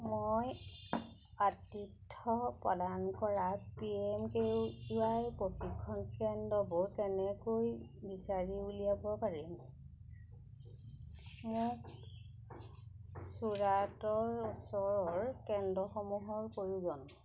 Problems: none marked